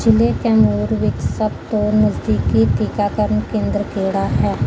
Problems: background sounds at intervals